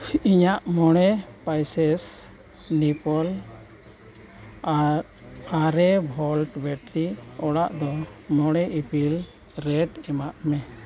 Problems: background sounds at intervals